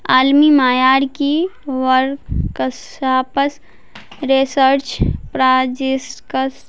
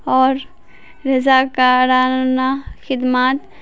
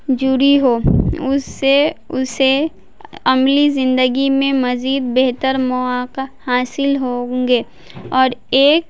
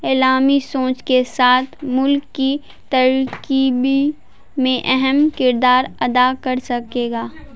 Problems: constant background noise